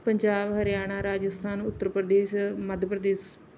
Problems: none marked